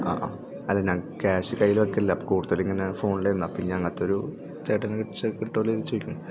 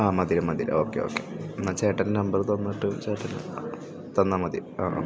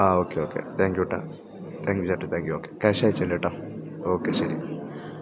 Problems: background sounds at intervals